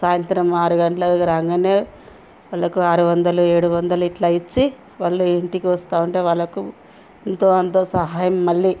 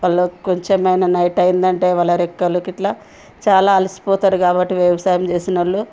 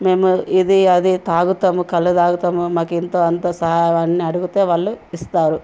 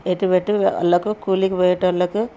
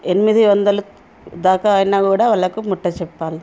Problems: background sounds at intervals